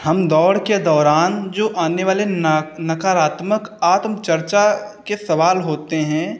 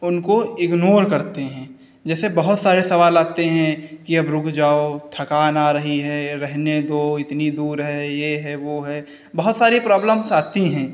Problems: none marked